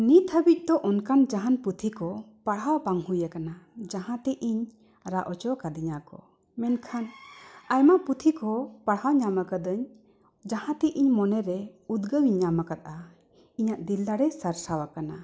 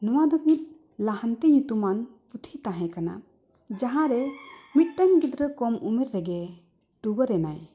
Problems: none marked